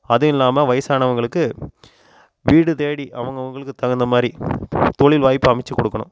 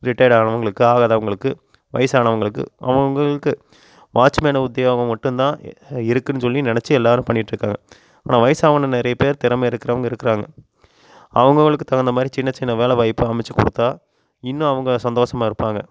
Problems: constant background noise